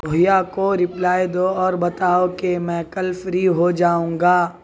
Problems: none marked